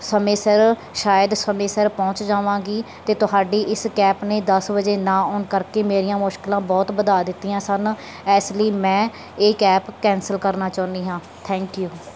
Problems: none marked